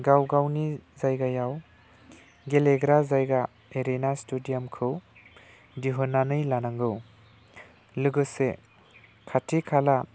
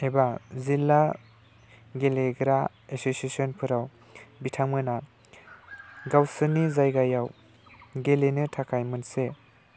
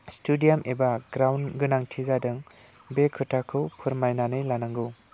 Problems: low volume